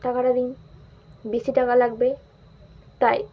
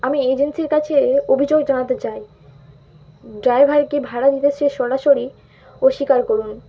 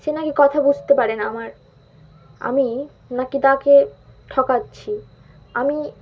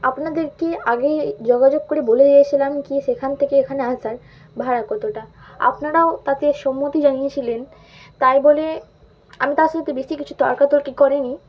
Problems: background sounds at intervals